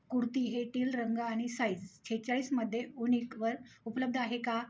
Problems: none marked